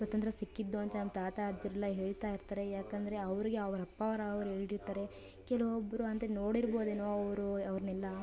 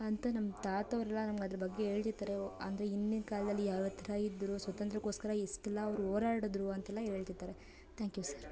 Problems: background conversations at intervals